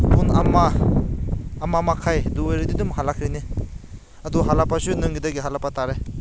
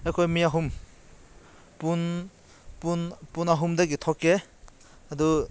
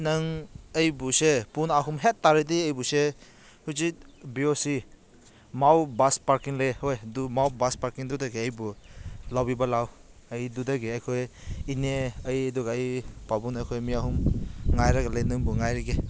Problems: none marked